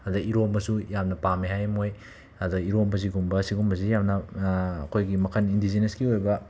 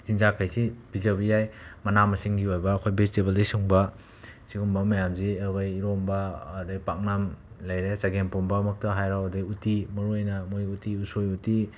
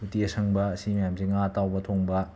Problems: background sounds at intervals